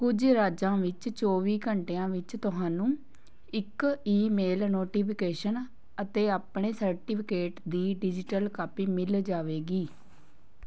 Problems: none marked